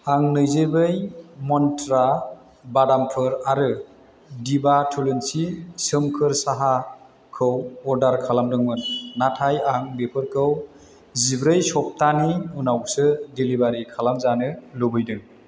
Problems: constant background noise